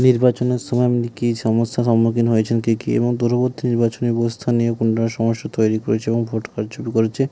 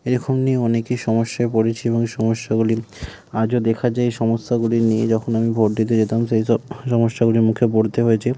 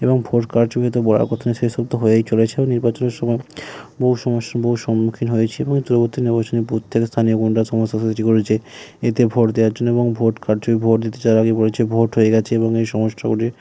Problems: none marked